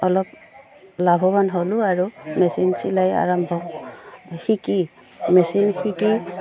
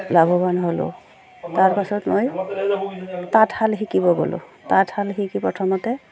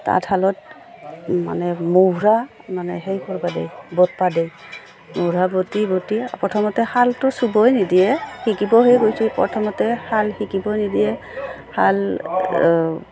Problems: none marked